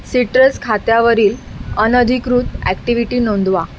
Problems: constant background noise